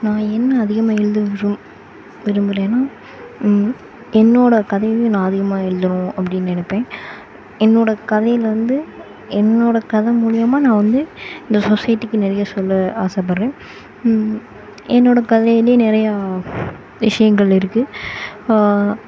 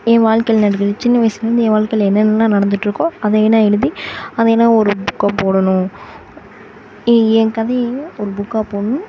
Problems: constant background noise